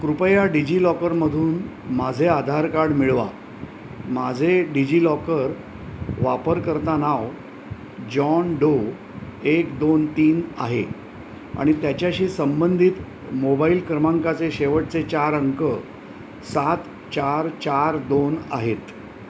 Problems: constant background noise